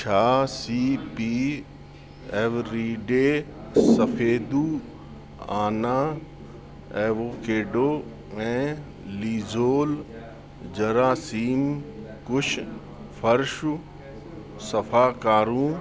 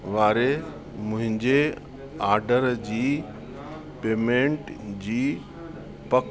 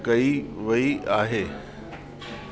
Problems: constant background noise, echo